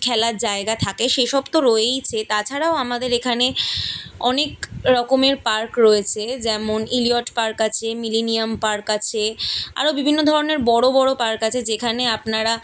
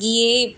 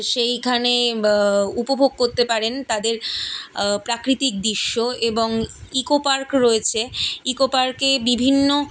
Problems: none marked